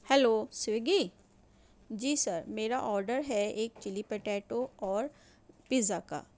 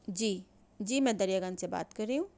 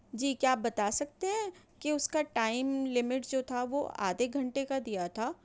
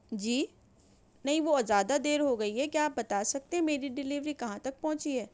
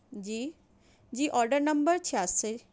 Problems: none marked